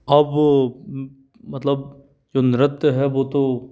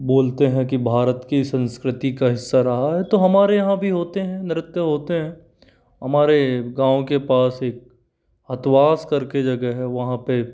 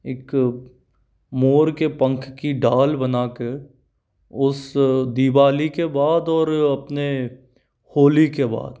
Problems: none marked